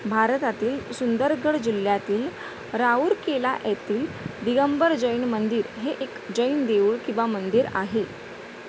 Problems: constant background noise